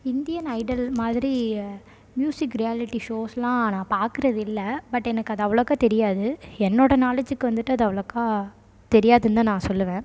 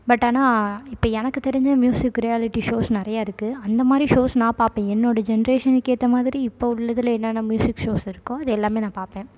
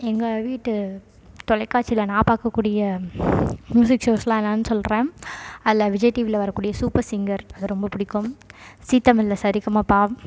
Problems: background sounds at intervals